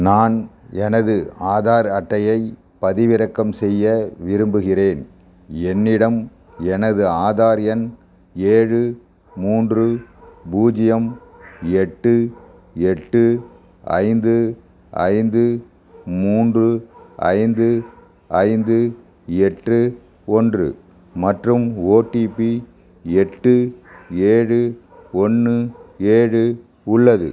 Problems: background sounds at intervals